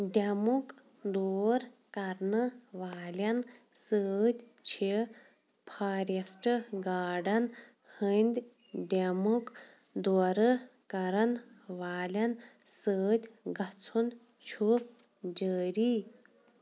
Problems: none marked